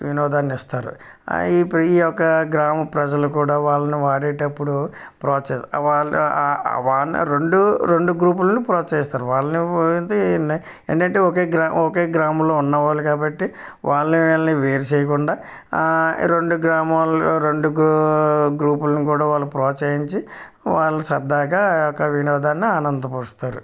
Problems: background sounds at intervals